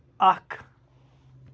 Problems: background sounds at intervals